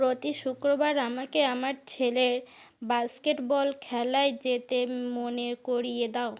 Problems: none marked